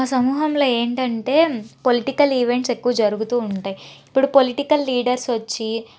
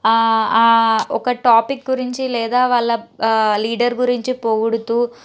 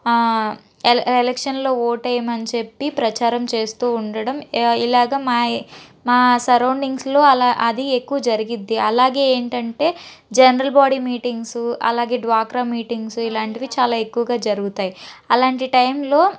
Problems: none marked